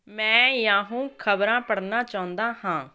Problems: constant background noise